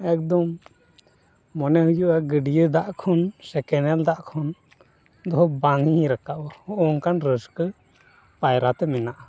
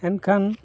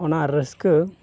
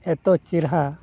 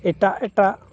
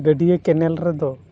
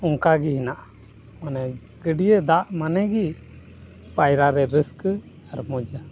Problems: constant background noise